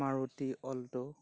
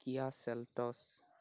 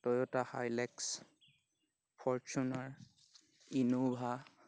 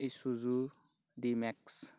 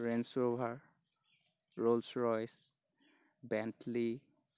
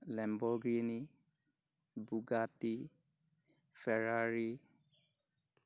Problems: none marked